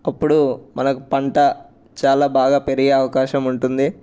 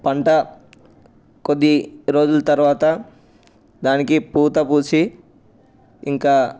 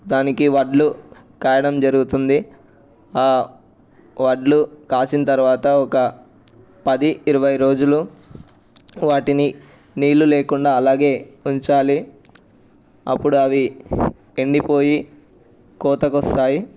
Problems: none marked